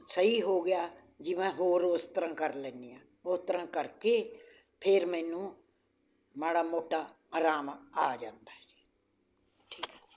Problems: constant background noise